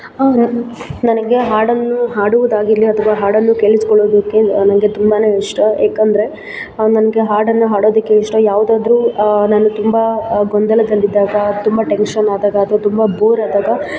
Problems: background sounds at intervals